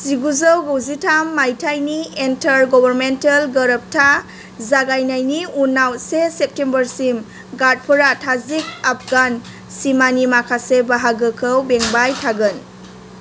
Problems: constant background noise